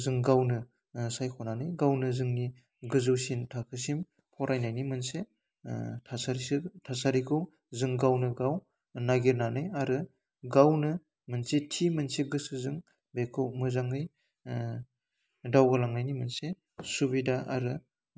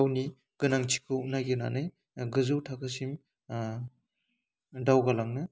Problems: constant background noise